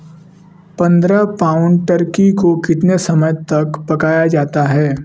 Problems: none marked